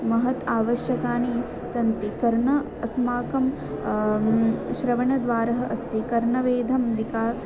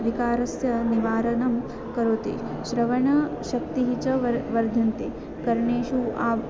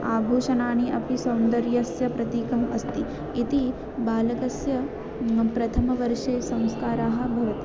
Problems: constant background noise, continuous background conversations